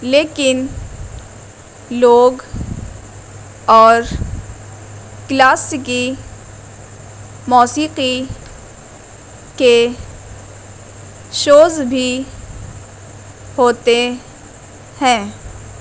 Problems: constant background noise